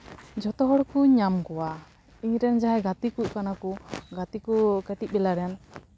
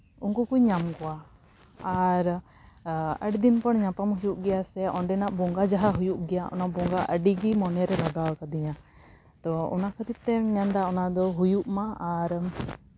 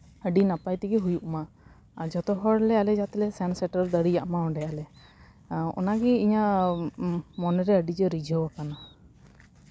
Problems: constant background noise